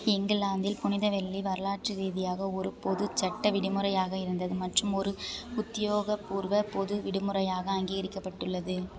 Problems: background conversations at intervals